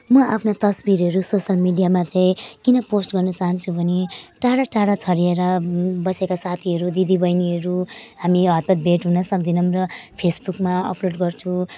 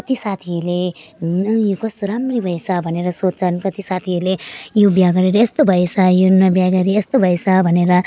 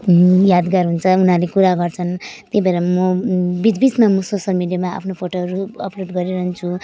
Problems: none marked